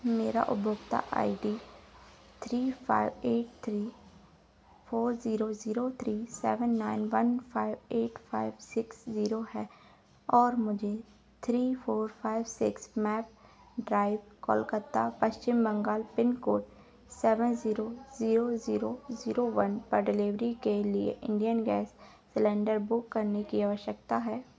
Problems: background sounds at intervals